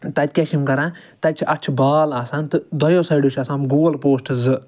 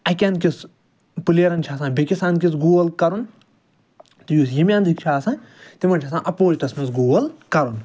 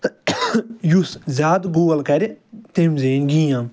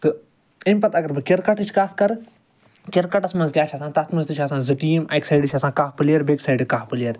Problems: none marked